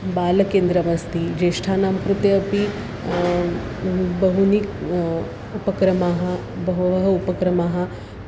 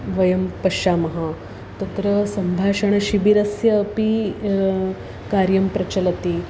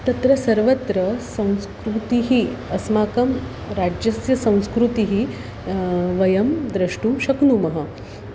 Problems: constant background noise